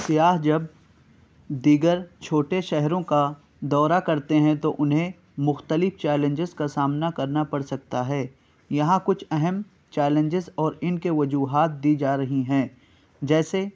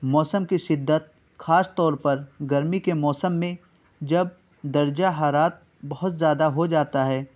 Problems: none marked